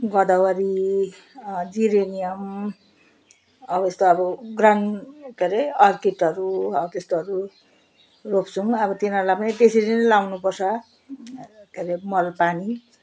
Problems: constant background noise